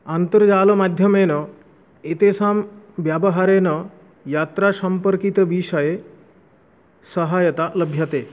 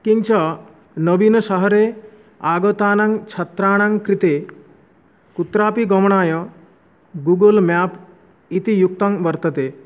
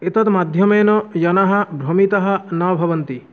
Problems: none marked